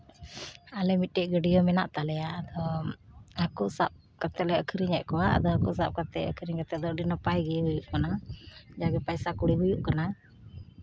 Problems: constant background noise